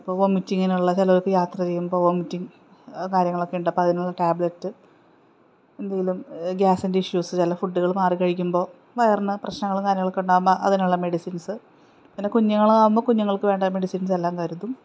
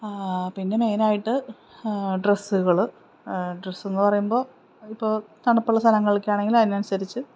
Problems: none marked